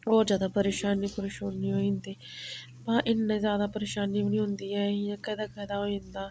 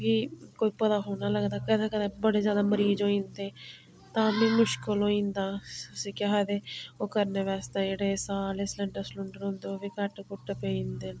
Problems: none marked